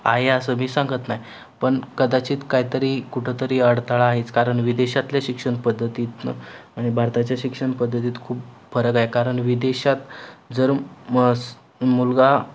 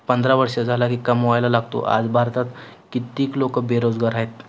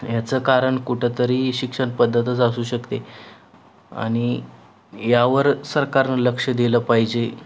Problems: constant background noise